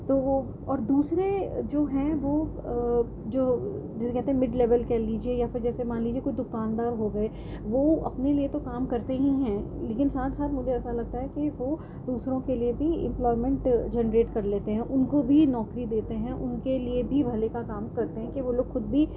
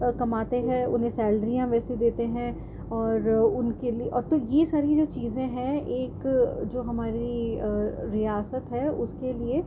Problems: constant background noise, low volume